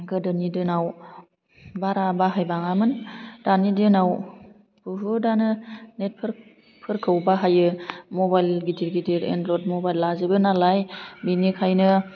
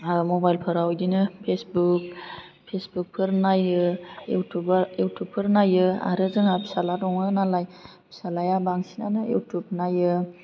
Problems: low volume